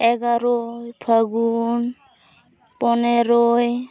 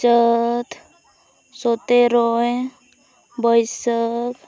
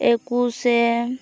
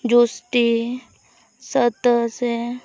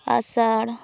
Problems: background sounds at intervals, background conversations at intervals